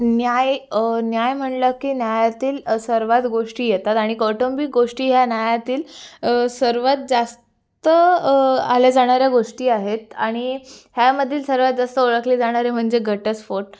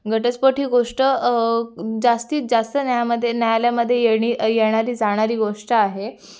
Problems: none marked